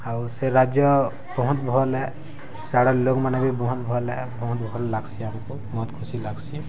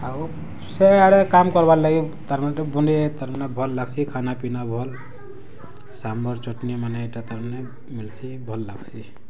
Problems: low volume